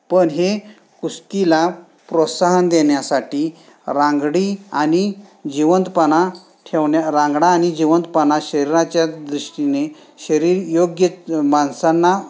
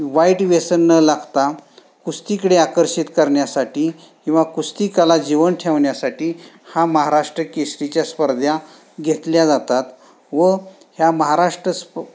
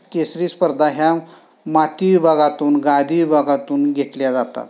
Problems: background sounds at intervals